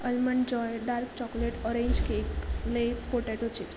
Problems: constant background noise